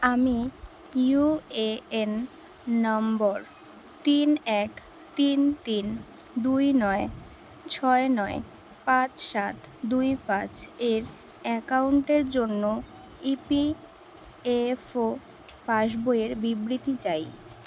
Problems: none marked